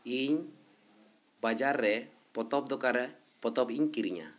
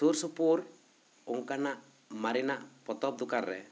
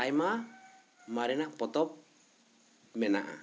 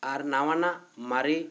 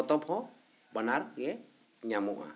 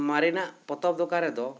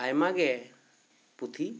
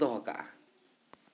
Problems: constant background noise